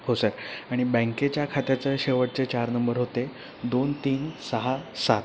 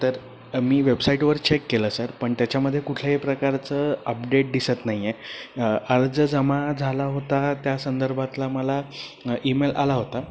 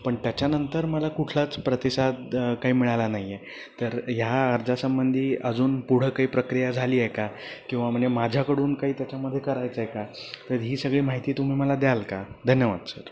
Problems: constant background noise